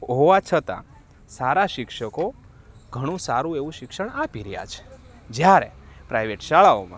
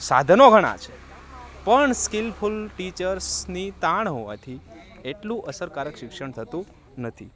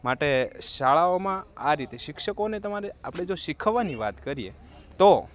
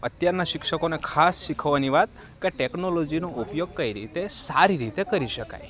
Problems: constant background noise